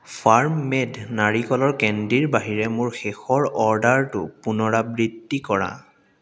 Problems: constant background noise, echo